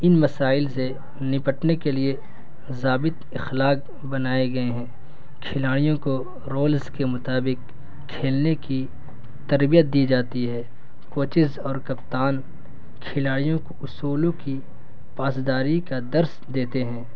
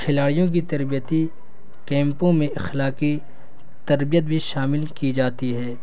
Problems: constant background noise